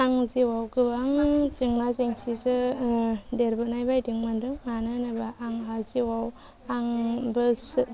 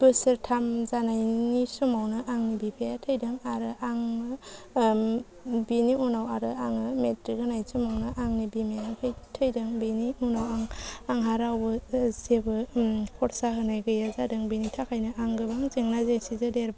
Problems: low volume